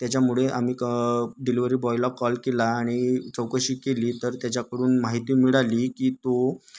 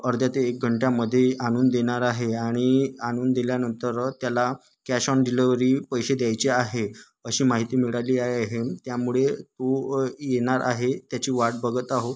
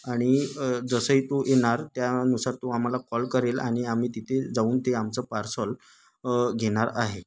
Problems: constant background noise, background conversations at intervals